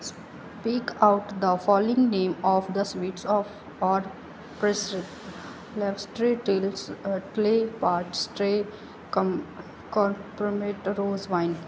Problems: background sounds at intervals